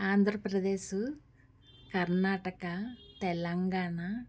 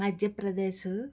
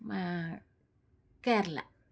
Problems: none marked